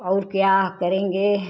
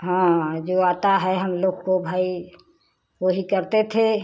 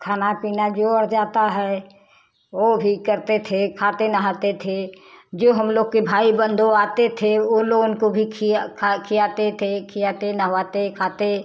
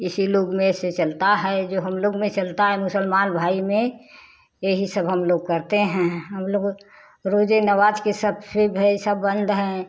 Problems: none marked